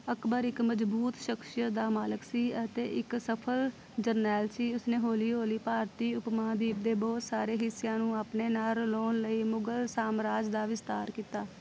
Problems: constant background noise